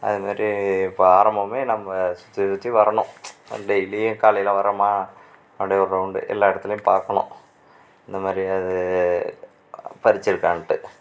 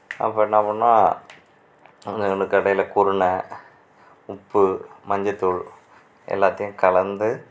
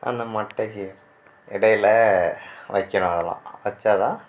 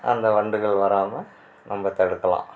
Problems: none marked